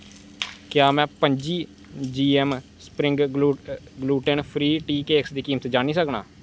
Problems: constant background noise